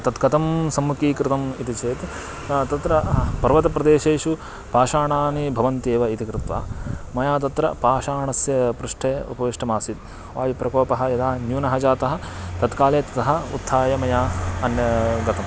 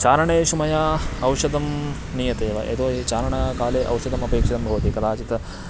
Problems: constant background noise, background conversations at intervals